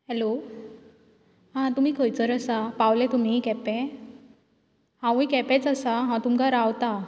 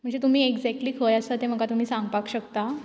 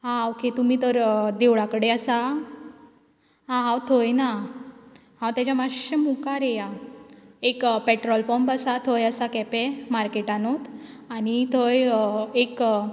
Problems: constant background noise